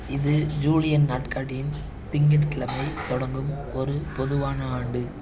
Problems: none marked